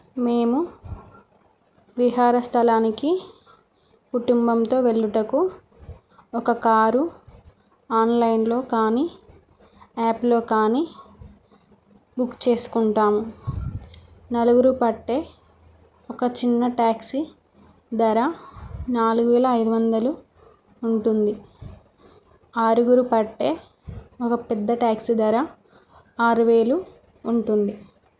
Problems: none marked